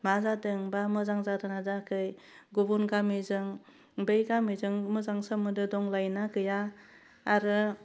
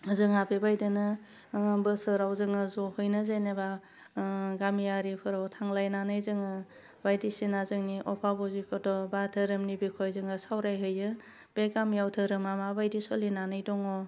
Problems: none marked